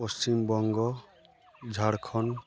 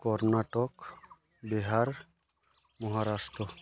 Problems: constant background noise